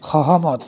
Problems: constant background noise, continuous background conversations